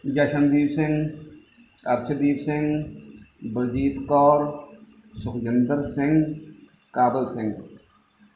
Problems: background sounds at intervals